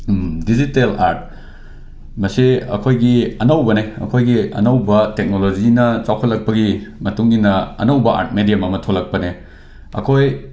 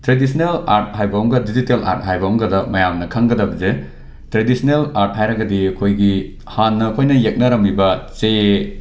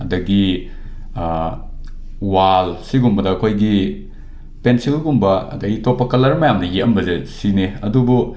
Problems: none marked